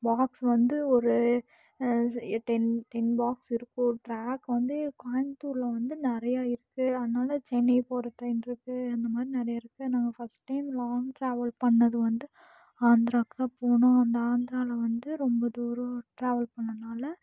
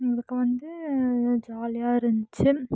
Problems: none marked